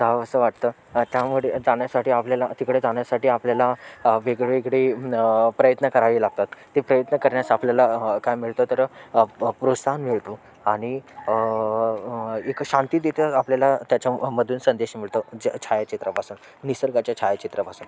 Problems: constant background noise, continuous background conversations